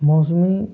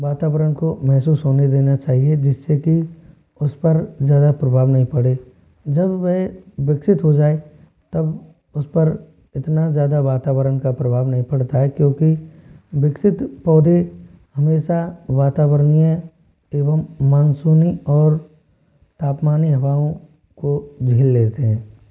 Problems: constant background noise